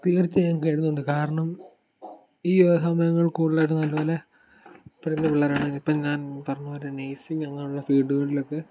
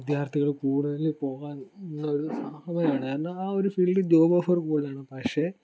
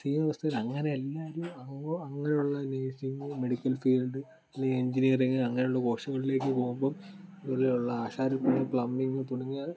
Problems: background sounds at intervals